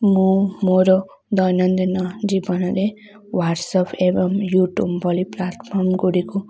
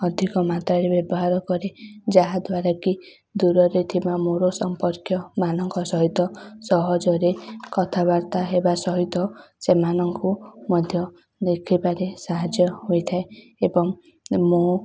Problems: none marked